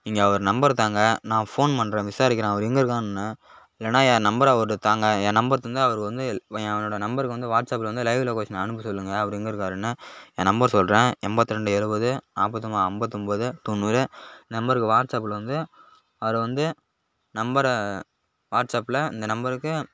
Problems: none marked